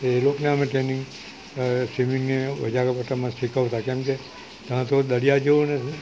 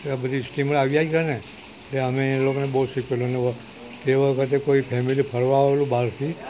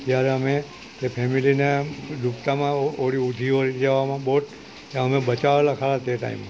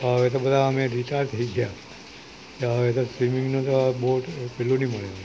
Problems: constant background noise